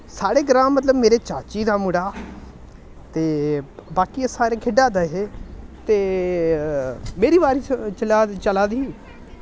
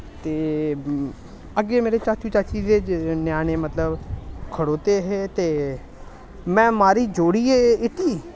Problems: constant background noise